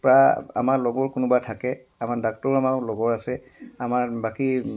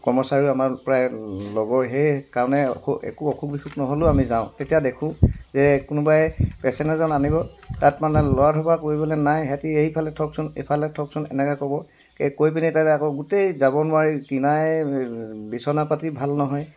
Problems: background sounds at intervals